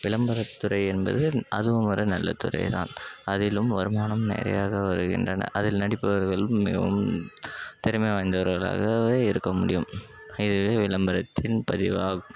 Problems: background sounds at intervals